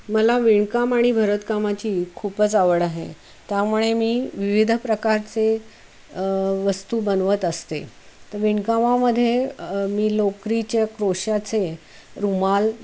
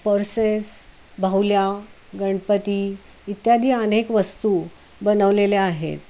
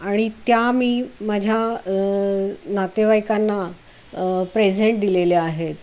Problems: constant background noise